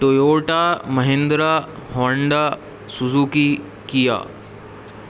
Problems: constant background noise